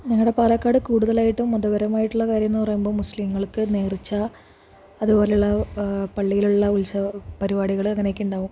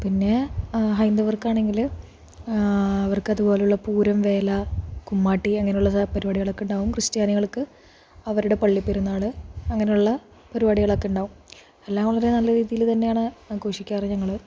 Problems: low volume